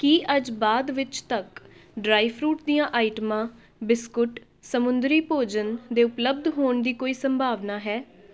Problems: background conversations at intervals